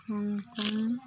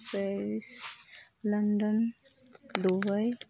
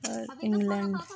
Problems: background conversations at intervals, low volume